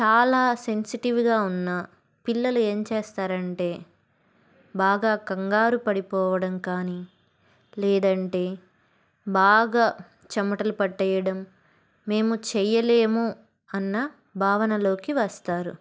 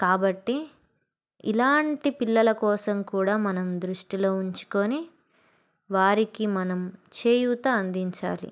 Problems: background sounds at intervals